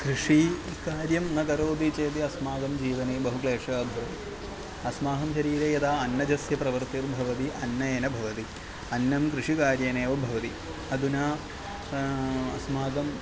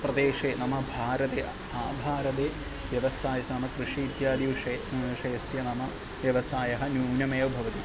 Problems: background sounds at intervals